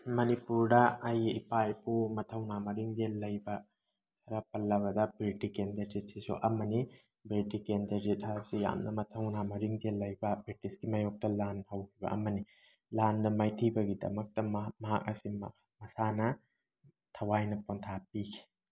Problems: none marked